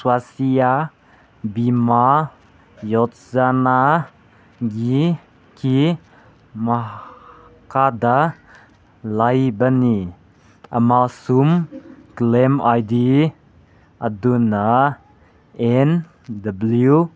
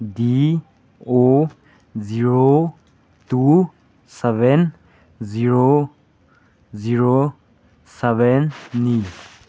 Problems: none marked